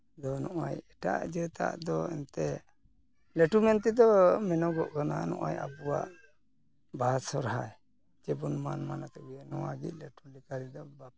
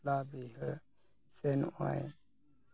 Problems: background sounds at intervals